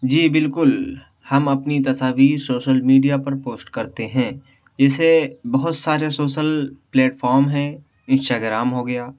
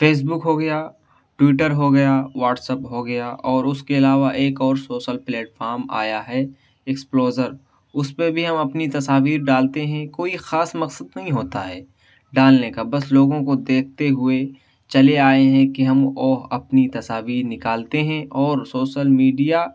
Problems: none marked